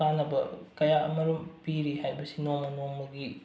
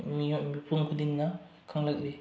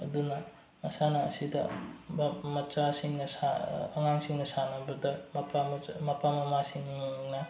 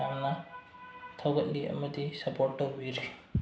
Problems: none marked